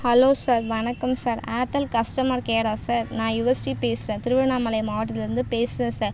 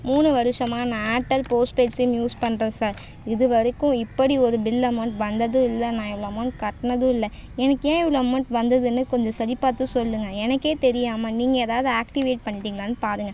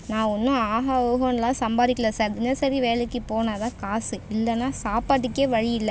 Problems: background sounds at intervals